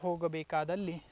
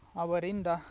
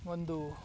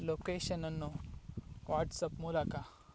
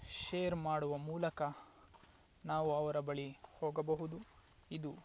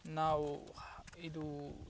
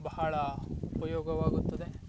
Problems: background sounds at intervals